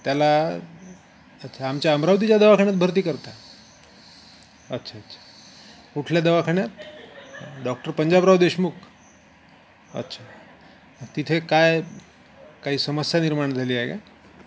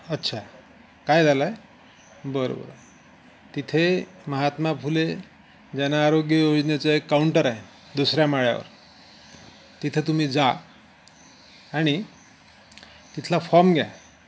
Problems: constant background noise